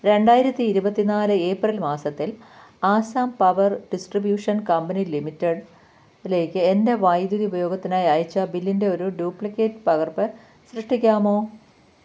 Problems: none marked